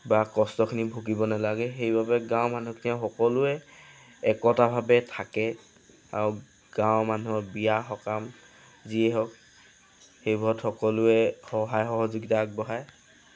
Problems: background sounds at intervals